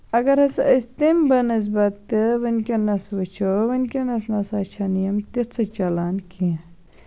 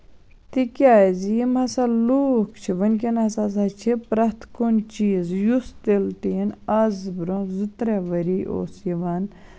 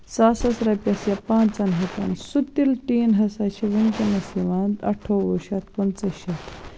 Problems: constant background noise